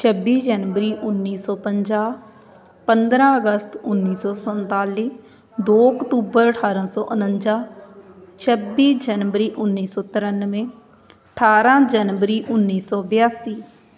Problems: continuous background conversations